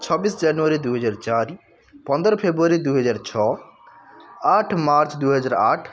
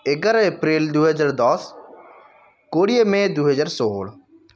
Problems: constant background noise